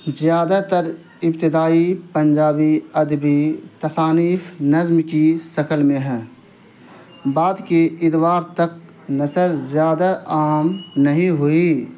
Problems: constant background noise